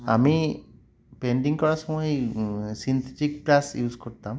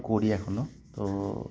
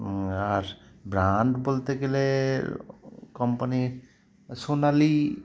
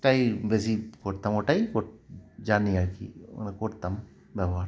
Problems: none marked